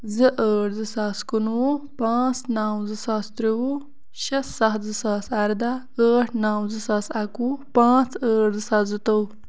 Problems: constant background noise